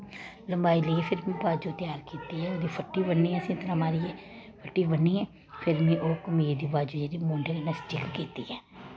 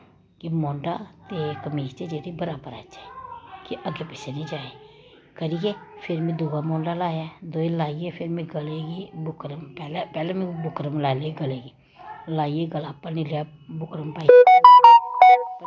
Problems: constant background noise